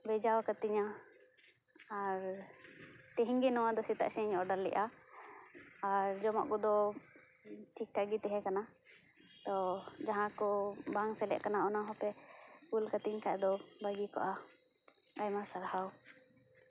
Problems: background sounds at intervals, background conversations at intervals